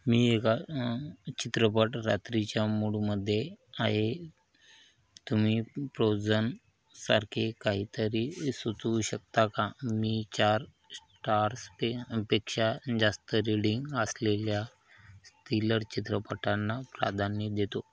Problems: none marked